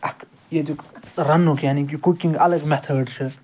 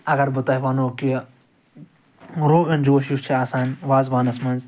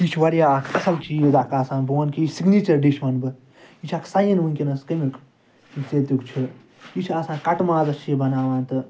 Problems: constant background noise, background conversations at intervals